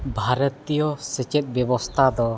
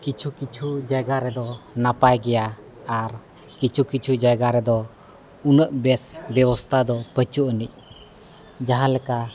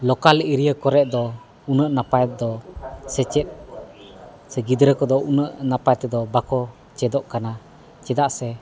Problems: none marked